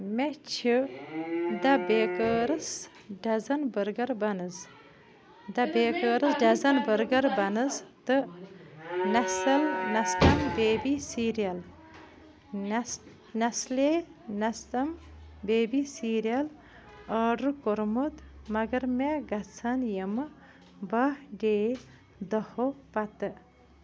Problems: background sounds at intervals, background conversations at intervals